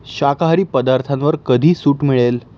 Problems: none marked